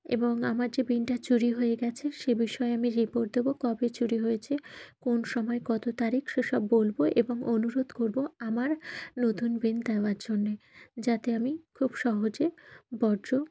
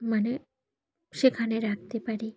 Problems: none marked